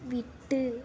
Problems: none marked